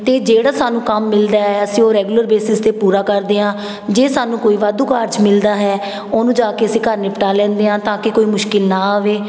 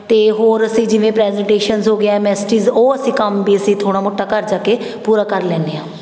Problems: background sounds at intervals, background conversations at intervals